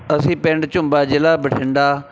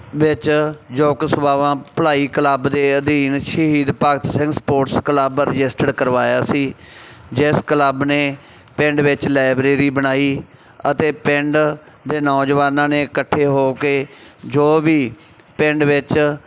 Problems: background sounds at intervals